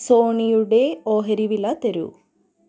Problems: low volume